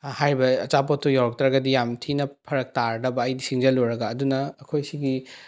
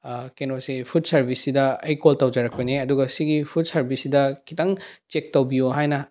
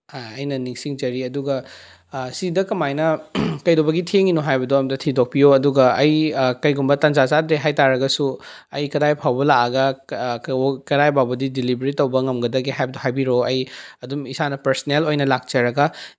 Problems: none marked